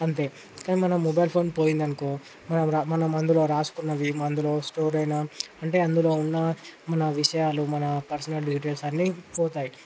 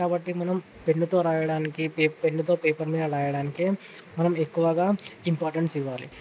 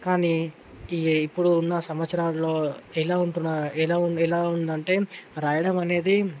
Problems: constant background noise